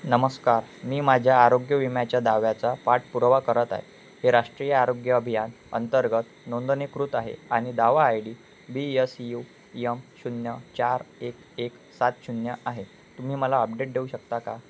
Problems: constant background noise